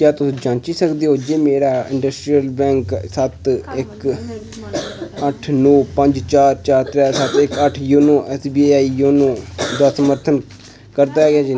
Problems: constant background noise